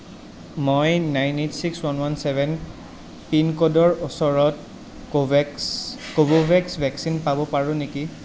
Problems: constant background noise